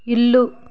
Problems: background sounds at intervals